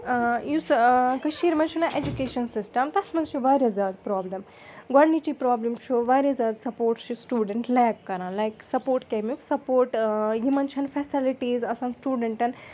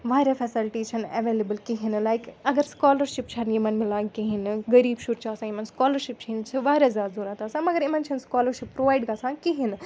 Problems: background sounds at intervals, continuous background conversations